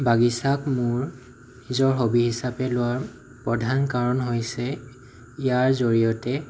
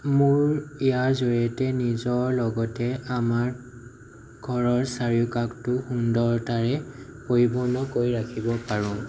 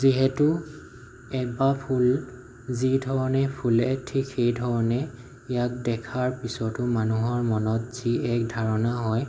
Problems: low volume